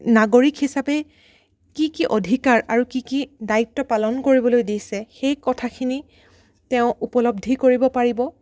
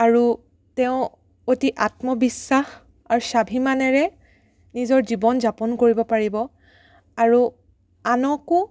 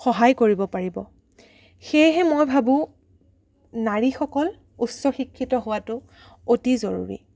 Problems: none marked